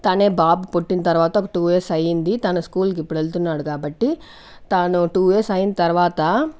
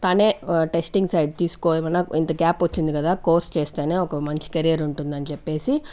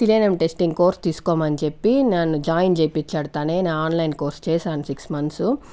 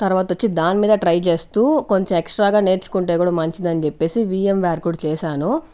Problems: none marked